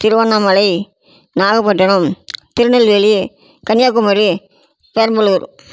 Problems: none marked